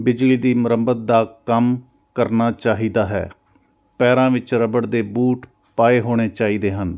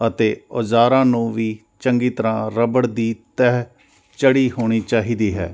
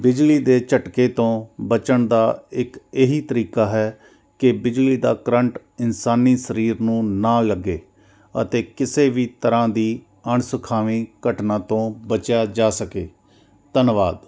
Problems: none marked